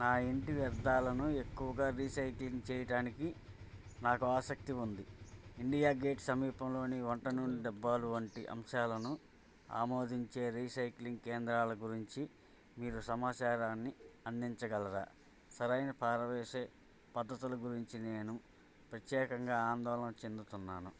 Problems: low volume